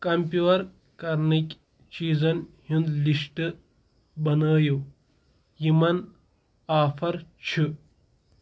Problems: none marked